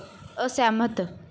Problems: background sounds at intervals